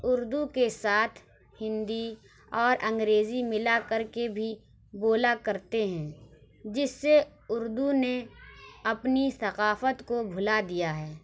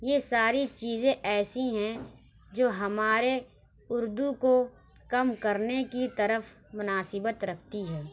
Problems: none marked